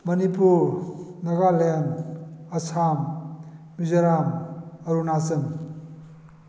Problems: background sounds at intervals